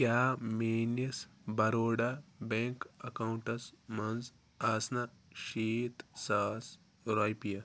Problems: none marked